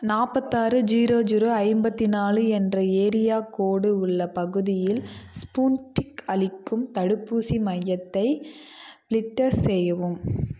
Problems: background conversations at intervals